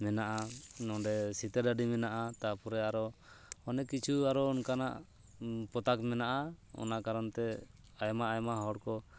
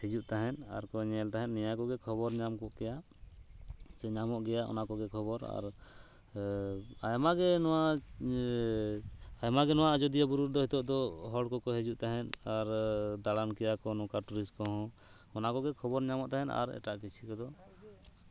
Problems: constant background noise